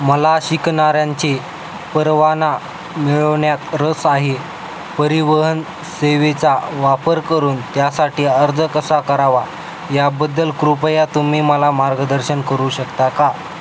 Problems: constant background noise